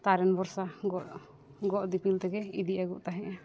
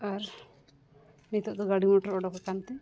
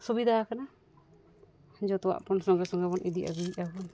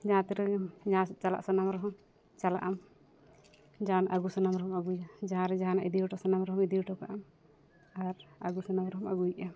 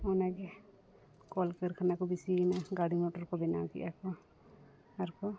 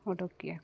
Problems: background sounds at intervals